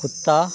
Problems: none marked